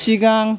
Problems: constant background noise